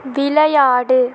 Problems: none marked